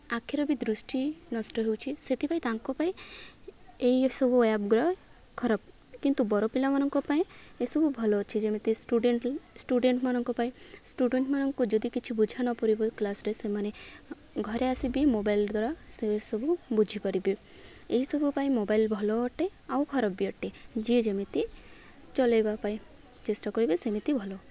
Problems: none marked